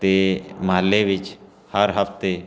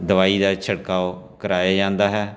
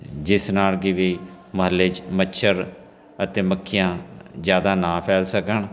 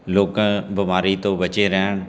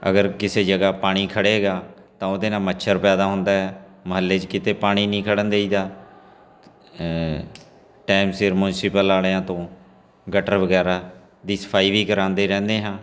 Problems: constant background noise